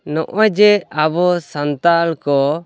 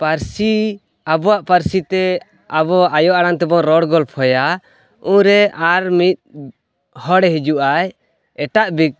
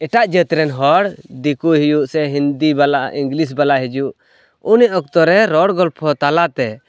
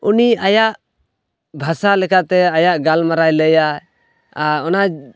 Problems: background sounds at intervals